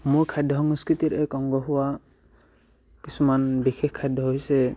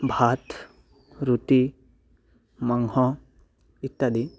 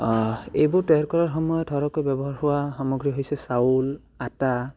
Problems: background sounds at intervals